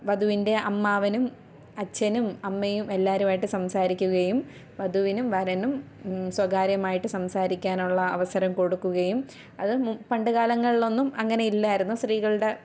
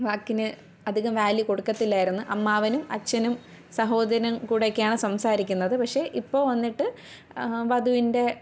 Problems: none marked